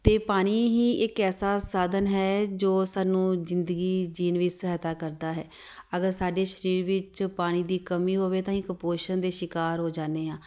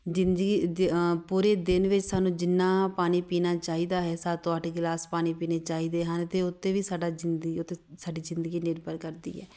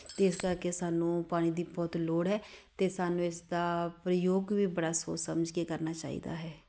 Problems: none marked